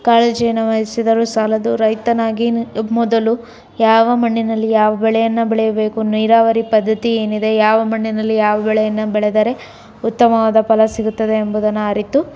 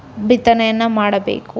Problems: none marked